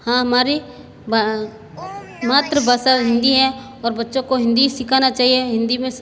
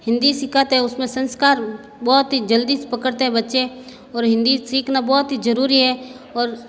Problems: constant background noise, echo